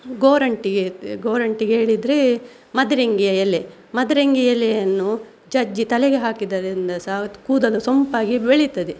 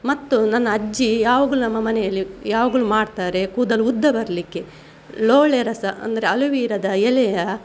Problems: none marked